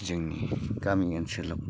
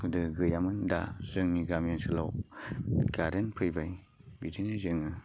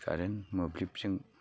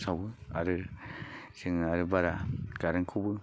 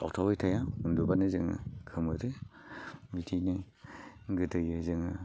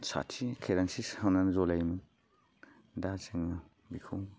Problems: constant background noise